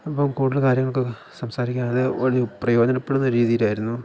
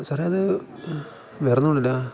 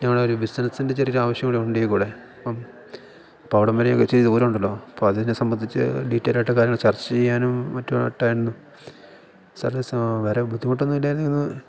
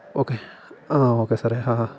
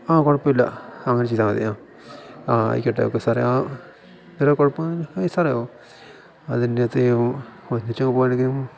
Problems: background sounds at intervals